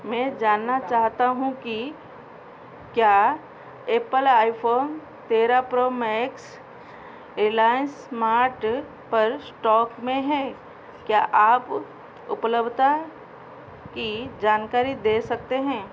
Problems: constant background noise